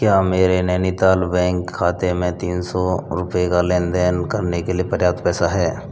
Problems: none marked